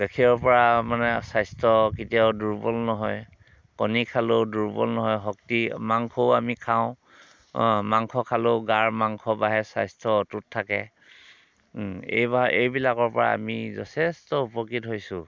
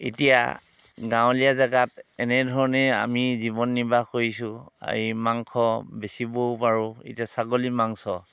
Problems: none marked